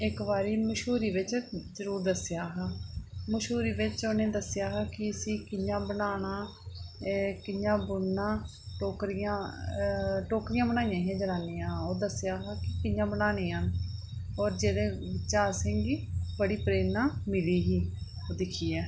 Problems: constant background noise